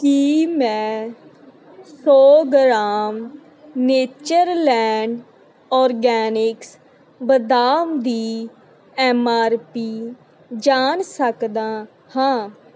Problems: none marked